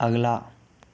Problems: background sounds at intervals